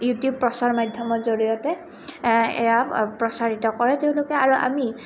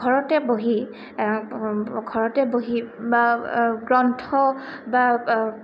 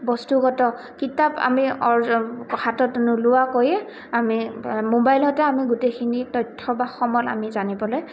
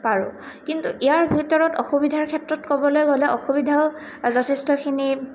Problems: constant background noise